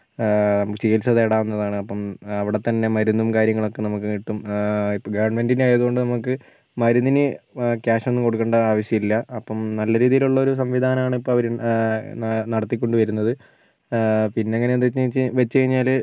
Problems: background sounds at intervals